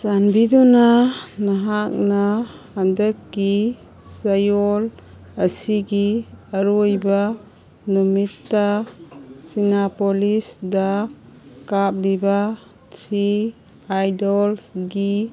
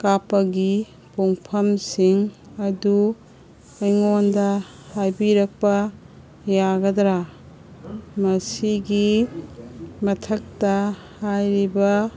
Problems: background sounds at intervals